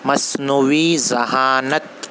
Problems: constant background noise